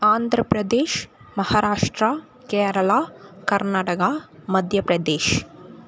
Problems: constant background noise